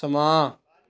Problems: background conversations at intervals